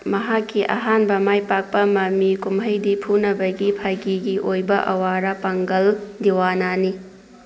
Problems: constant background noise